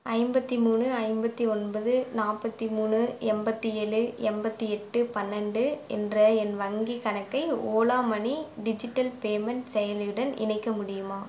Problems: none marked